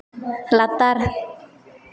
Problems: constant background noise, echo